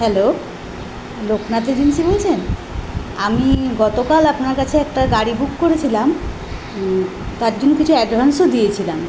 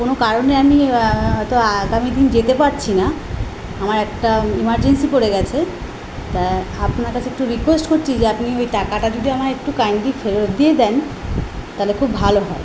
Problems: none marked